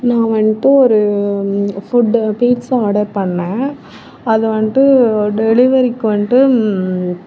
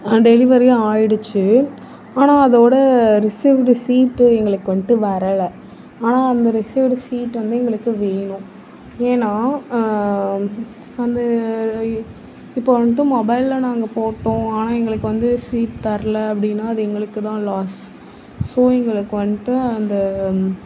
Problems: none marked